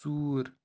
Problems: constant background noise, low volume